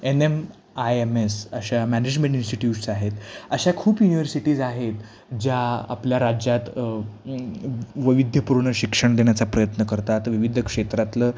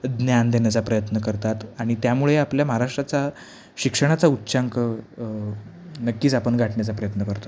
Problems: none marked